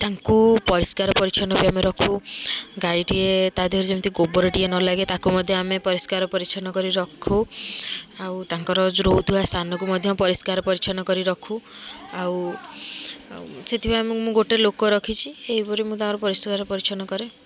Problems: constant background noise, continuous background conversations